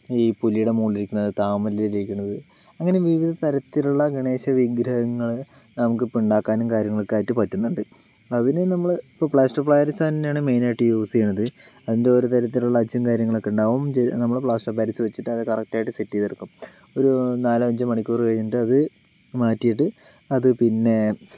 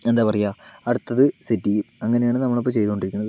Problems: background sounds at intervals